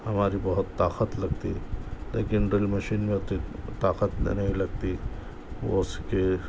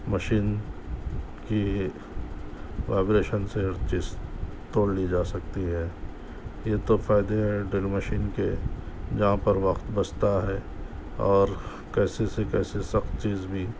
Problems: constant background noise